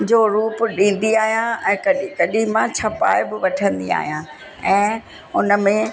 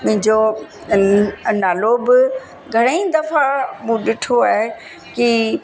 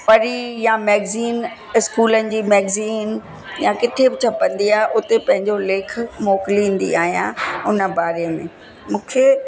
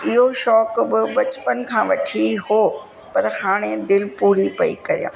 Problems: constant background noise